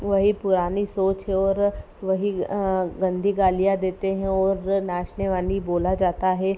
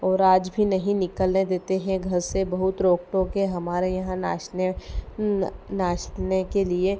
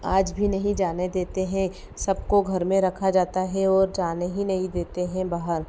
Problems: none marked